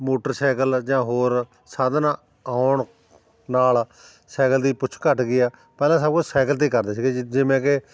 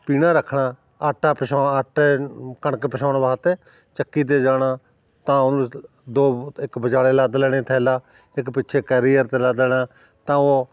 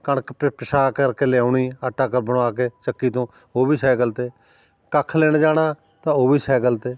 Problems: none marked